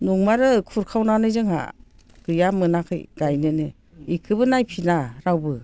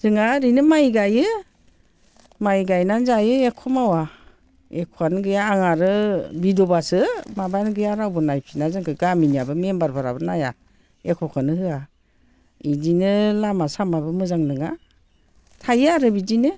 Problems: low volume